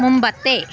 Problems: none marked